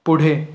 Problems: constant background noise